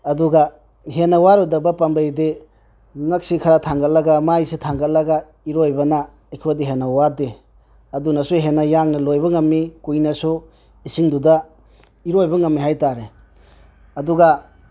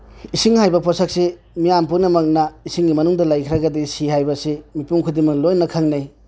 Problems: none marked